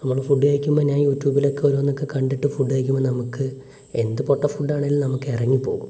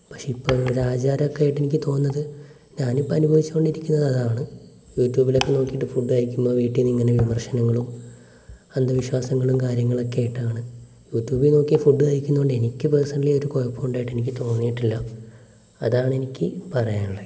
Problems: none marked